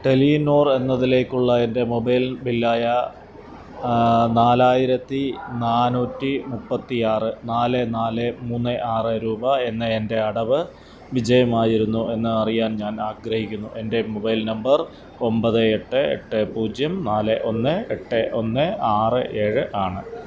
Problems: constant background noise